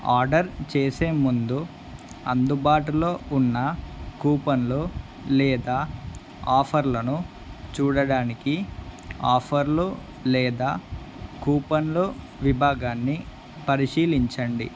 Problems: constant background noise